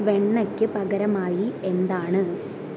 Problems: none marked